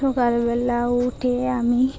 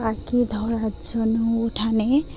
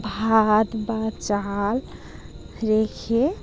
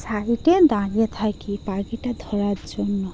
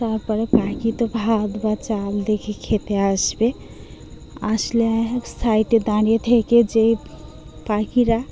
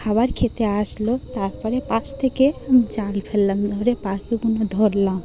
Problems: constant background noise, background conversations at intervals